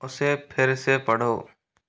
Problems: background sounds at intervals